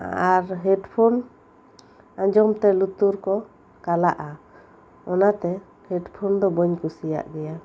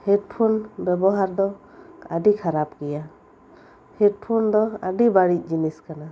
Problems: constant background noise